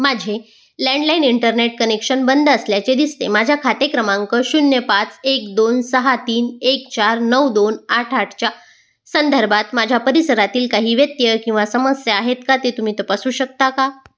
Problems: background sounds at intervals